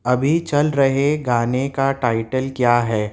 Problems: constant background noise